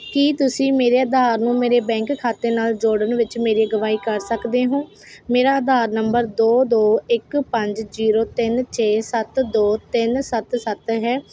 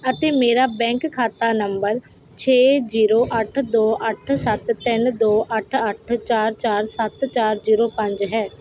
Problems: none marked